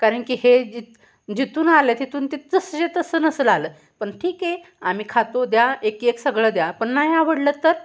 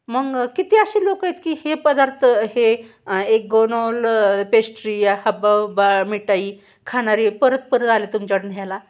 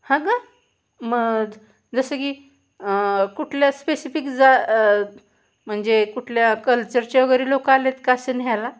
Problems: constant background noise, background conversations at intervals